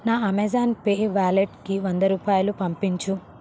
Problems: constant background noise